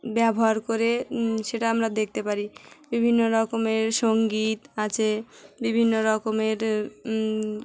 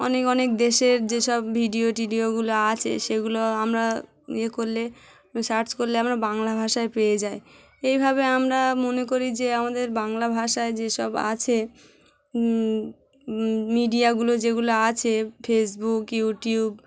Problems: none marked